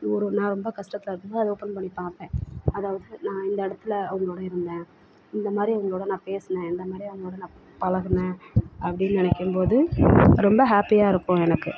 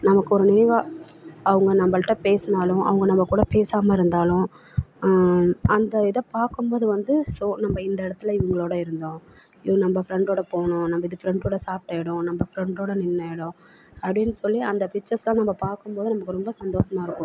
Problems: constant background noise, background conversations at intervals, low volume